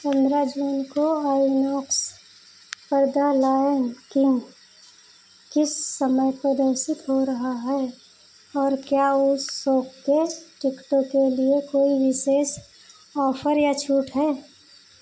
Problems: none marked